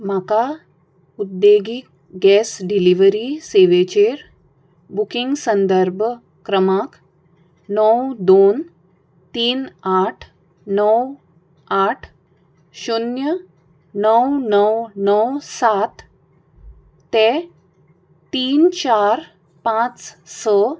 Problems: none marked